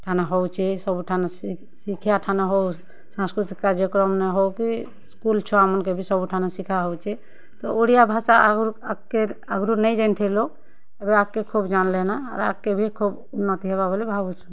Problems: none marked